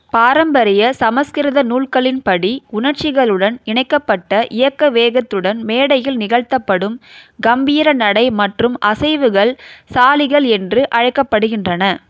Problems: none marked